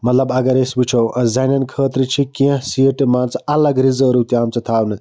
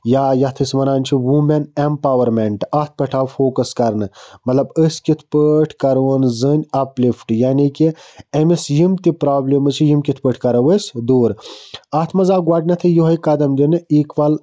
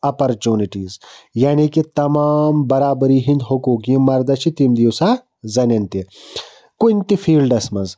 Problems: background sounds at intervals